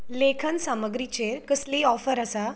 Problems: background sounds at intervals